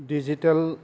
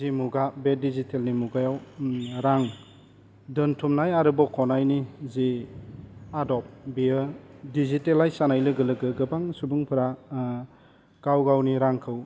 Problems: none marked